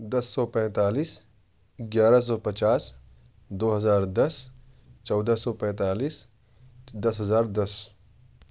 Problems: background sounds at intervals